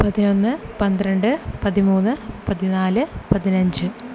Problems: none marked